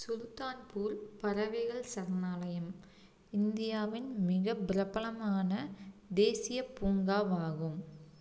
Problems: low volume